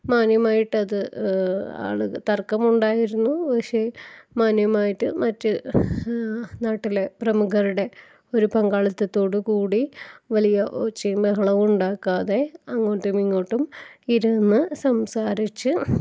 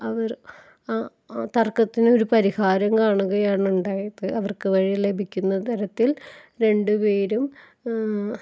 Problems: background sounds at intervals